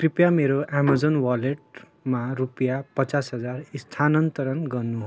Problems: background conversations at intervals